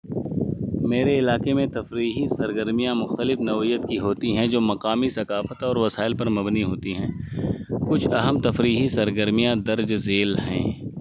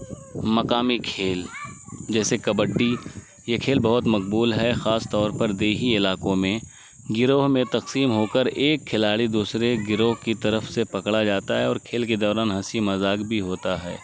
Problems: constant background noise